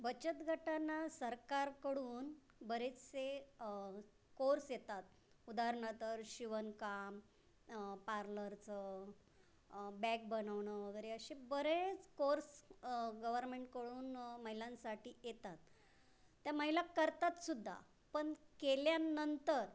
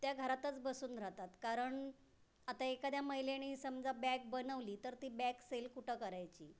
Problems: constant background noise, background conversations at intervals